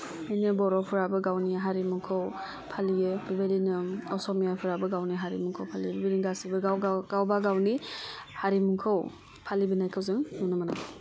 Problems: low volume